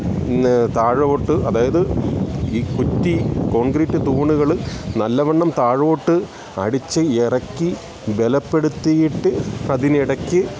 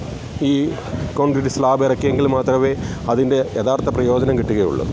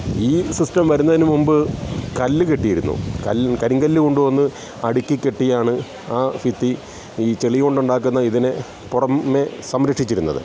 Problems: constant background noise